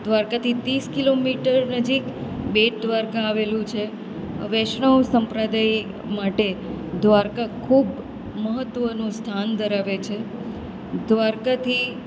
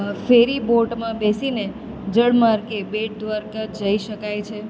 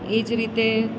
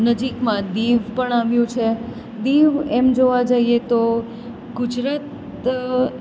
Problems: constant background noise